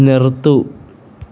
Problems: constant background noise